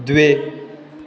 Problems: constant background noise